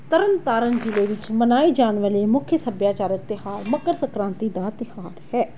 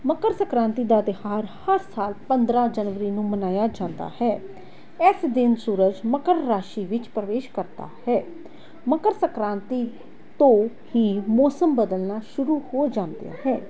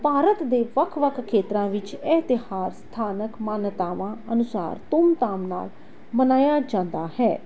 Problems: background sounds at intervals